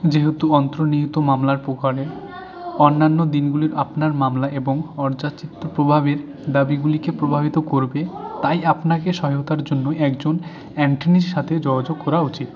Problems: background conversations at intervals